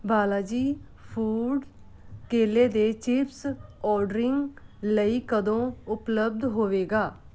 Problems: background sounds at intervals